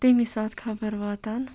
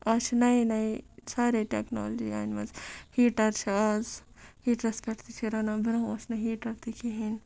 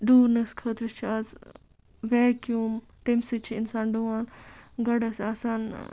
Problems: background sounds at intervals